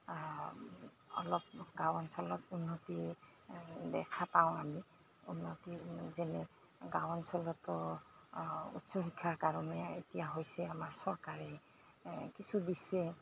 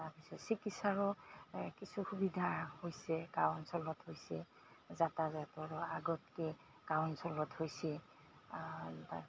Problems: constant background noise